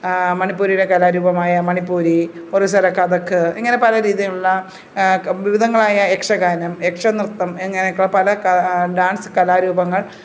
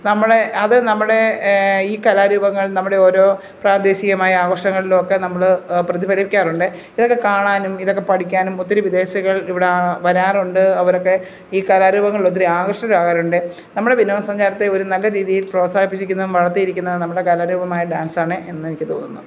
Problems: none marked